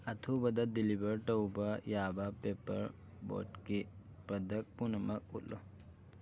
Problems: constant background noise